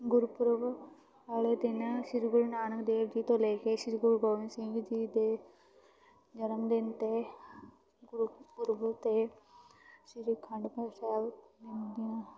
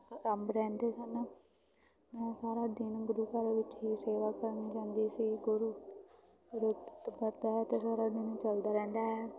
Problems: background sounds at intervals, continuous background conversations